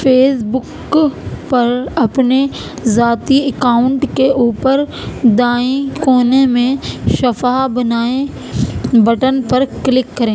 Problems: constant background noise